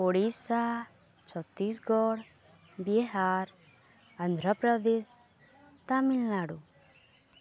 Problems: none marked